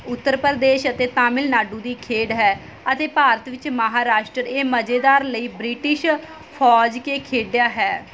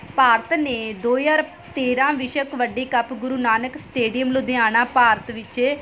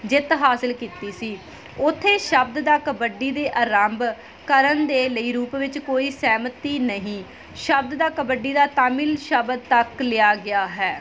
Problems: background sounds at intervals